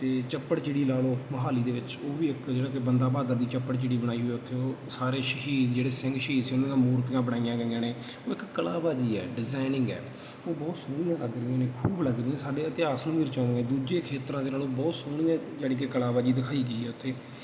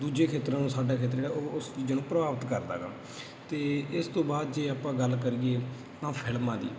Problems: none marked